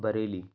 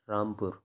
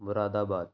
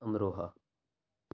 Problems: none marked